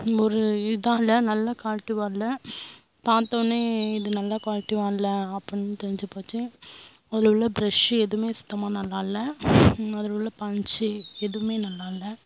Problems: constant background noise